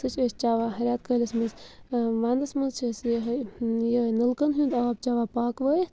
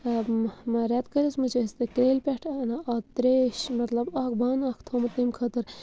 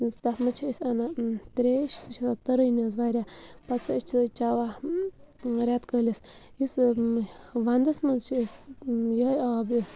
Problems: constant background noise